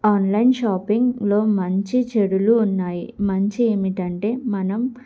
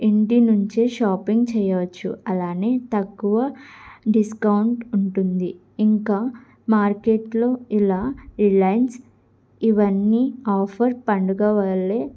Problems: background sounds at intervals